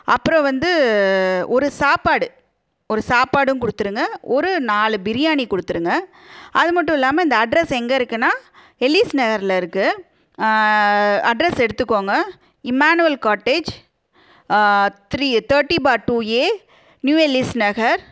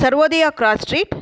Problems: none marked